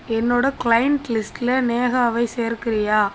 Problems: constant background noise